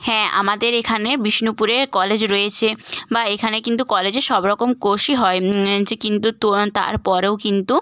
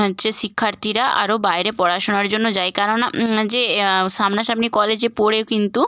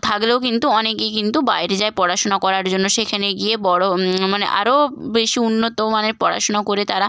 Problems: constant background noise